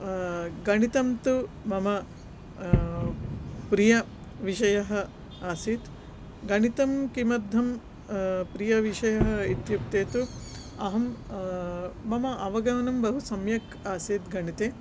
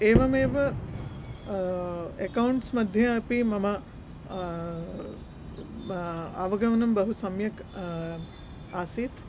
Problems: none marked